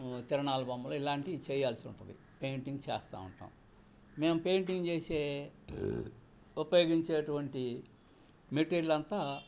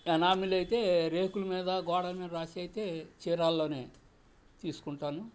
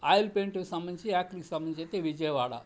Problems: background sounds at intervals